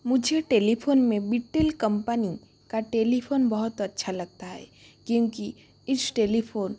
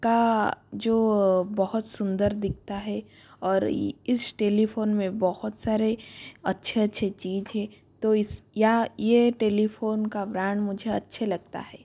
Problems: constant background noise